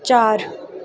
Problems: none marked